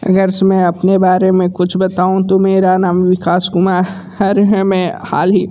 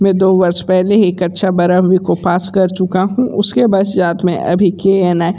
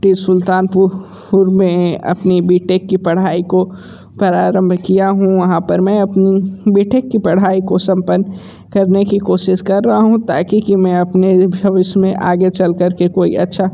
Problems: background conversations at intervals